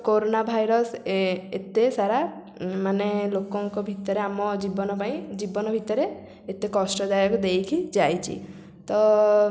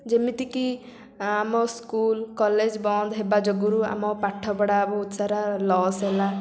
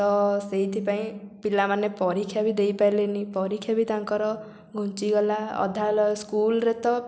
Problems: constant background noise